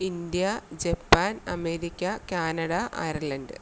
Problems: none marked